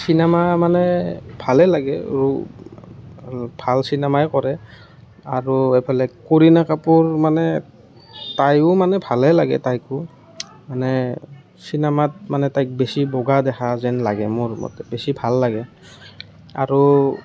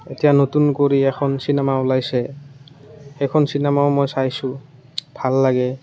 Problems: none marked